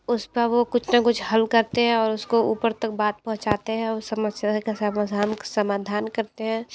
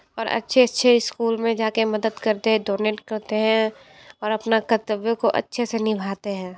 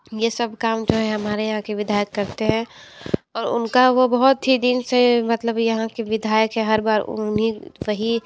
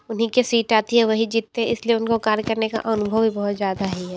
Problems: background sounds at intervals